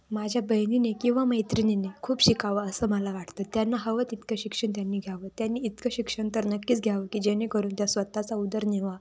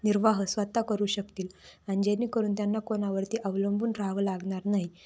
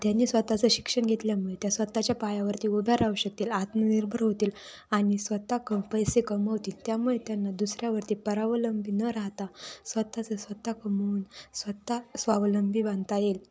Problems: constant background noise, background conversations at intervals